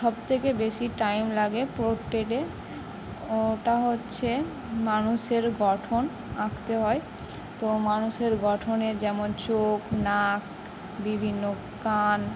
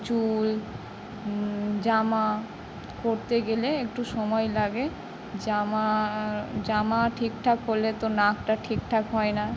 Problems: none marked